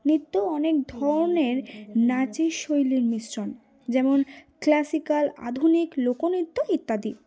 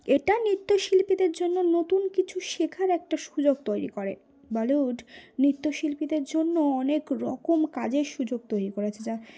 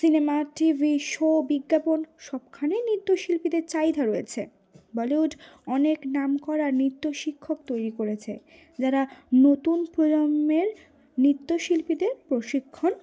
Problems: none marked